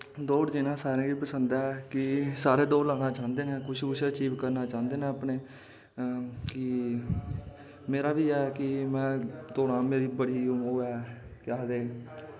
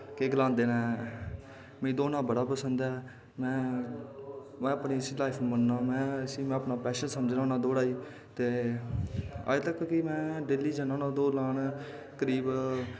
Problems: constant background noise, echo